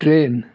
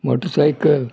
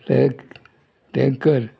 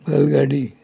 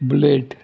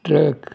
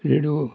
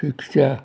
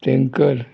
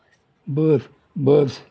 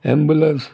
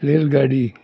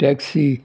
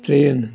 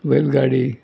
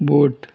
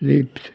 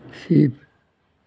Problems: none marked